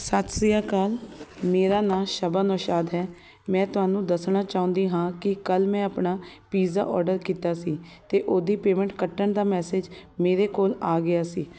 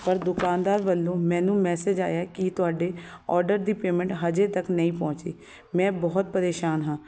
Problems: none marked